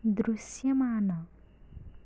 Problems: low volume